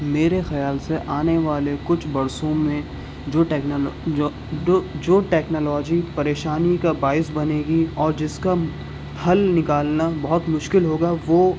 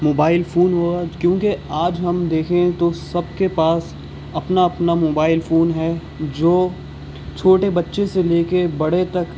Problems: constant background noise